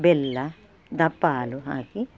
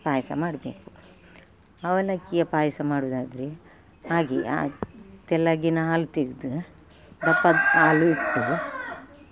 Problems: background sounds at intervals